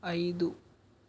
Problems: constant background noise, low volume